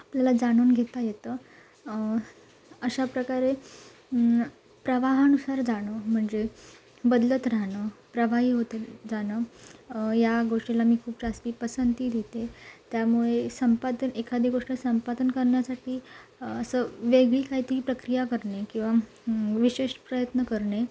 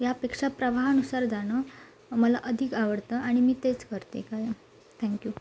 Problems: none marked